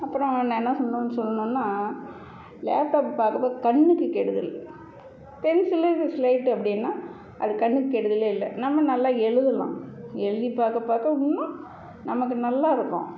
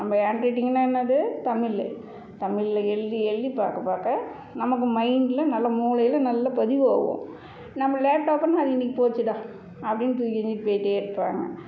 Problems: none marked